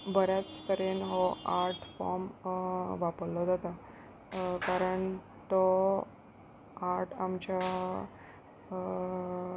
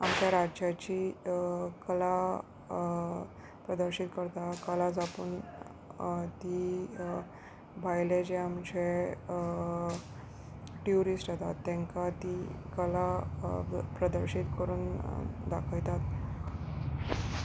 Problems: constant background noise, background conversations at intervals